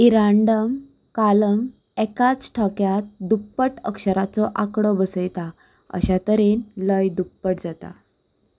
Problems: constant background noise